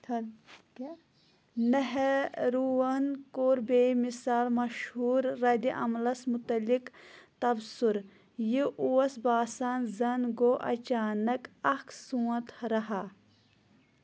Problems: background sounds at intervals, background conversations at intervals